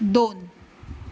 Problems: none marked